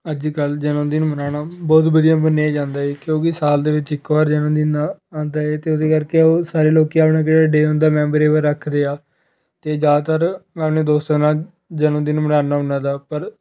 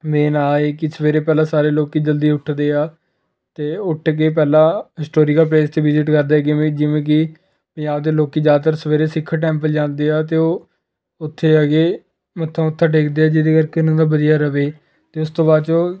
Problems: none marked